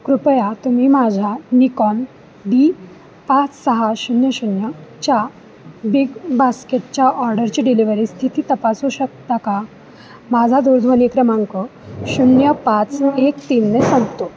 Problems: background sounds at intervals